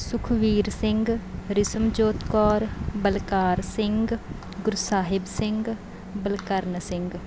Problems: background sounds at intervals